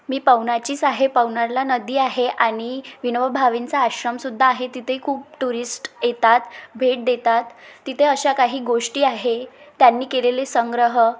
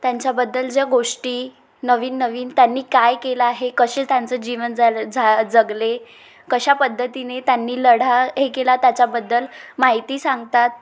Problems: constant background noise, background conversations at intervals, echo